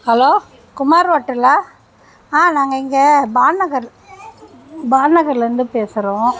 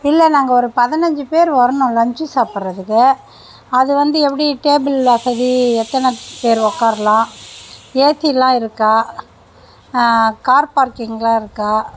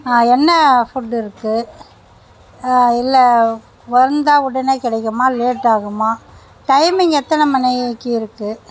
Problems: background sounds at intervals